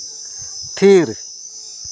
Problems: constant background noise